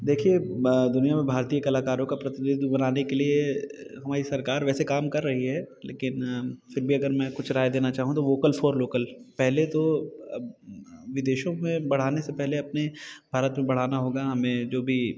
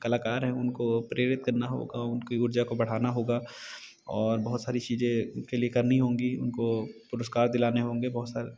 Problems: constant background noise